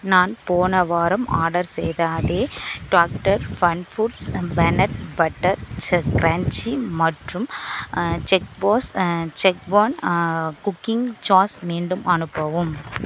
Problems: none marked